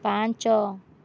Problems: none marked